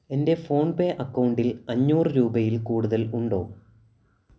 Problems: none marked